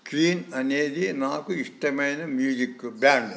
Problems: none marked